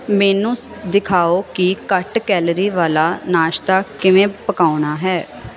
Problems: constant background noise